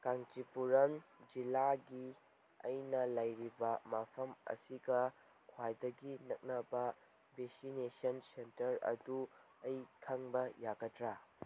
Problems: background sounds at intervals